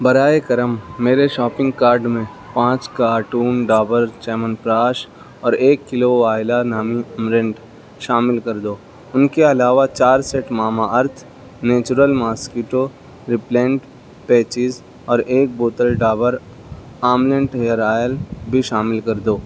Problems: background sounds at intervals, background conversations at intervals